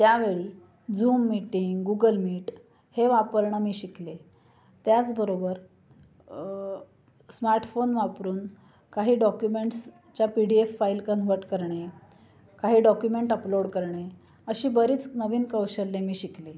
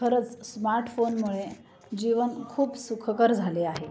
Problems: constant background noise, continuous background conversations